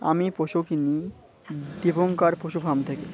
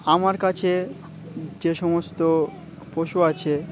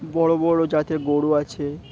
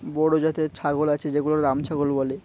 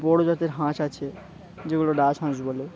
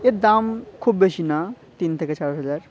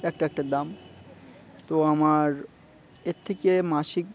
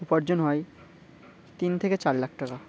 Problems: constant background noise, continuous background conversations